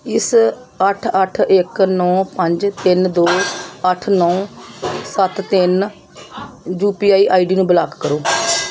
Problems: background sounds at intervals